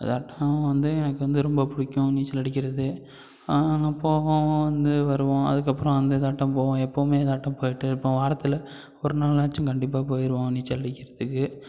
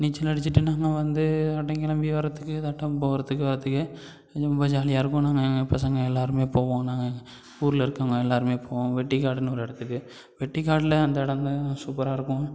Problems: none marked